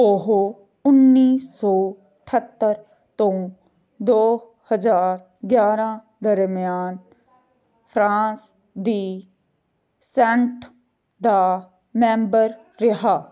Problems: none marked